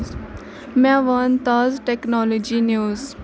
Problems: constant background noise, continuous background conversations